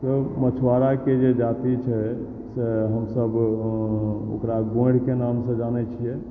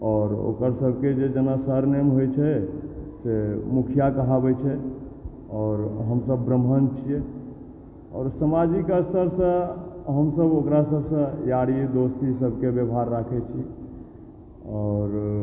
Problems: background sounds at intervals, low volume